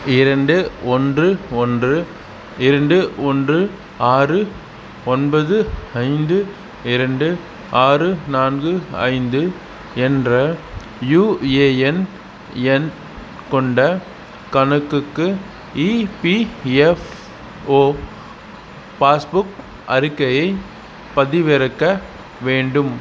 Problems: none marked